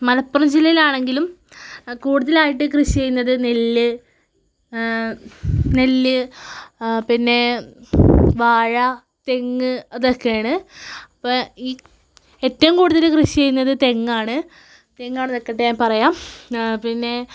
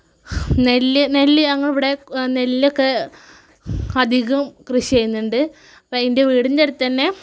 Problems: none marked